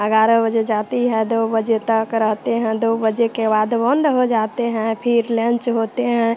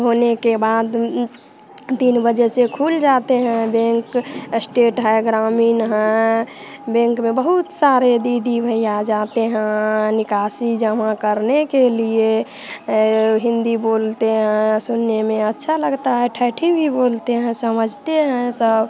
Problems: constant background noise, background conversations at intervals